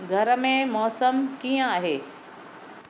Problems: none marked